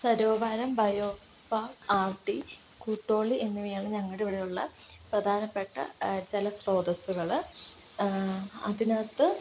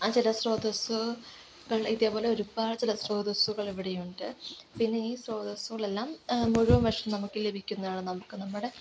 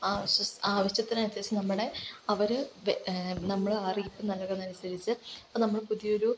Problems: constant background noise